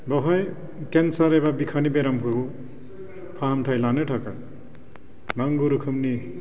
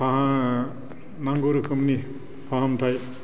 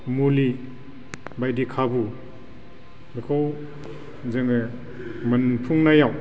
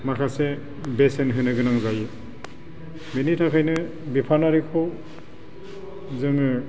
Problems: constant background noise